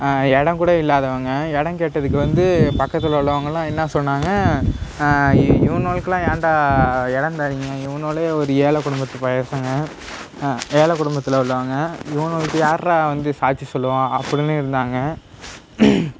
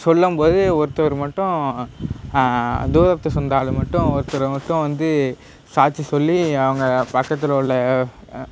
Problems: none marked